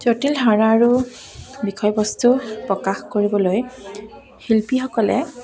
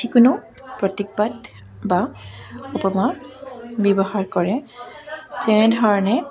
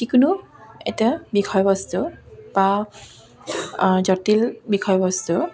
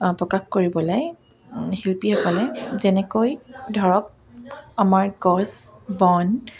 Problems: none marked